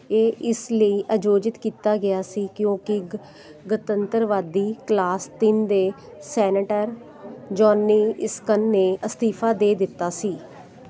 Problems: constant background noise